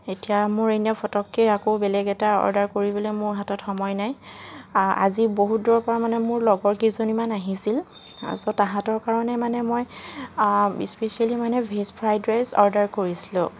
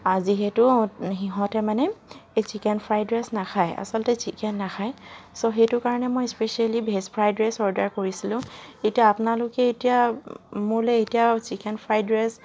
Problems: none marked